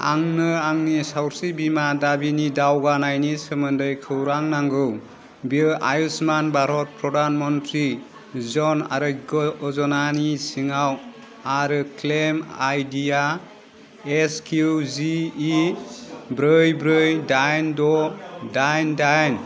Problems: low volume